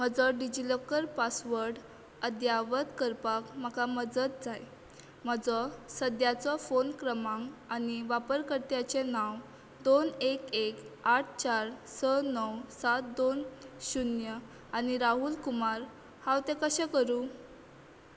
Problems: none marked